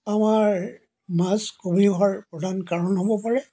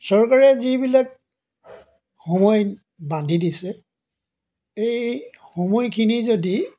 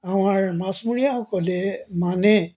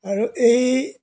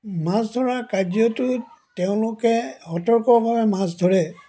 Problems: background sounds at intervals